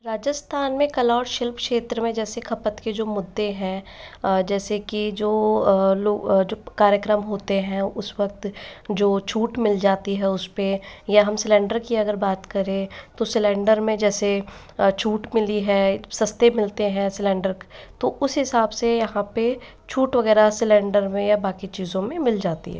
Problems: echo